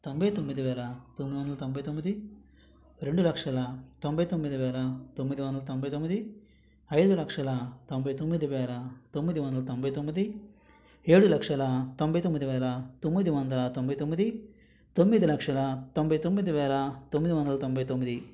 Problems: background sounds at intervals